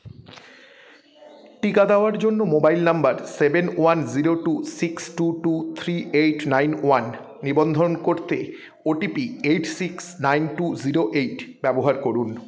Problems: continuous background conversations